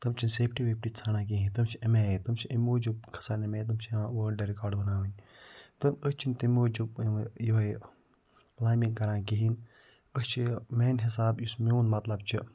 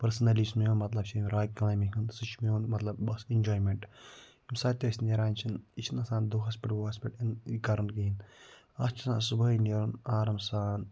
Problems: none marked